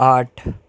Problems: none marked